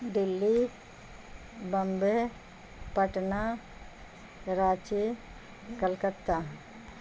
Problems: constant background noise